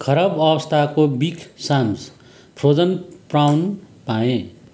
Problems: constant background noise